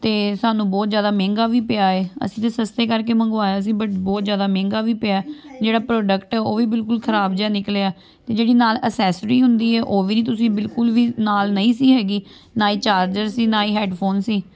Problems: none marked